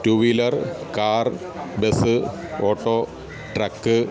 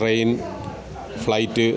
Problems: none marked